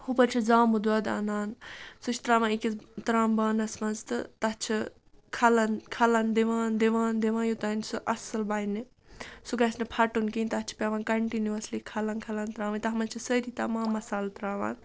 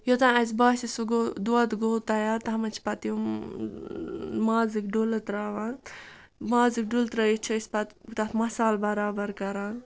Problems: none marked